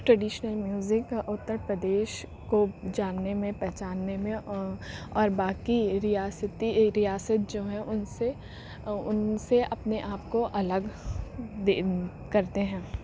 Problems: constant background noise